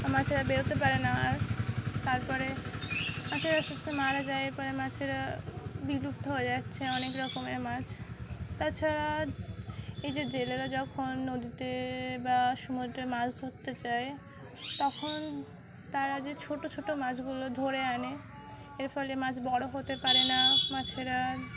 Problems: constant background noise